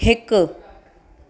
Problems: constant background noise, echo